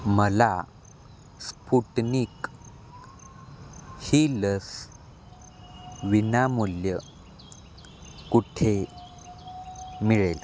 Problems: constant background noise, continuous background conversations